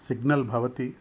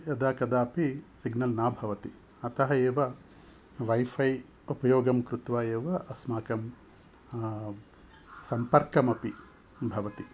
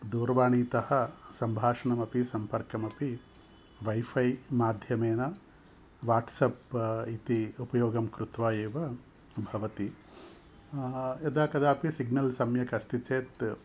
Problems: none marked